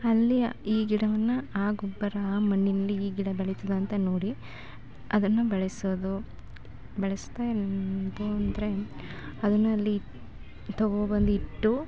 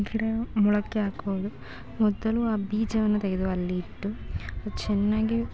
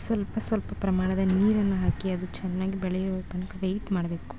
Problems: constant background noise